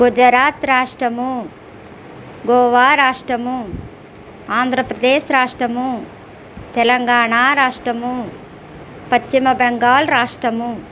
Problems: constant background noise